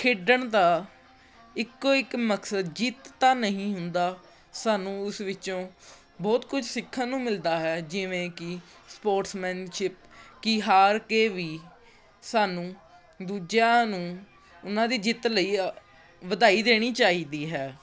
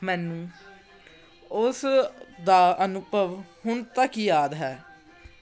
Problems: background conversations at intervals